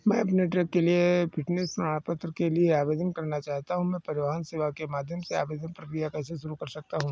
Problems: background sounds at intervals